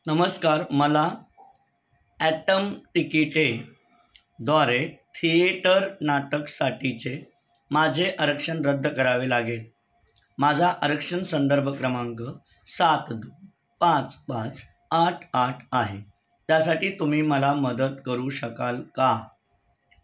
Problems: none marked